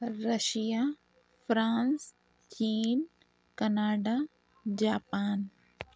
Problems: none marked